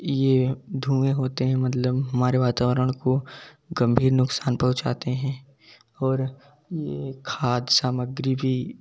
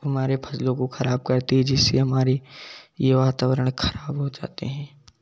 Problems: background sounds at intervals, background conversations at intervals